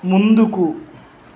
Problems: constant background noise